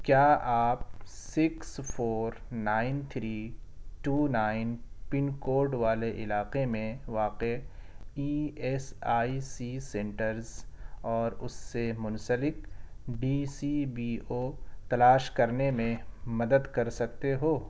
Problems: background sounds at intervals